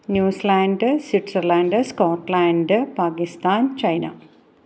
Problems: none marked